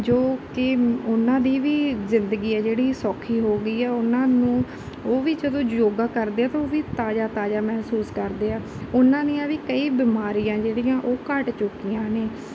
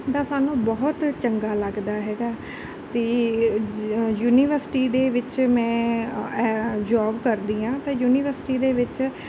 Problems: background sounds at intervals